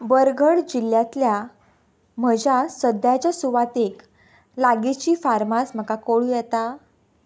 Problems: background sounds at intervals